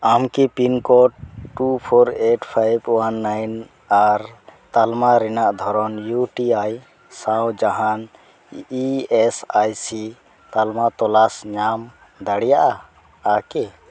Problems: none marked